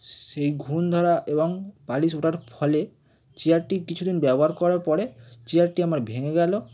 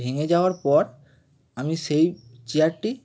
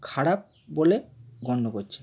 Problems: constant background noise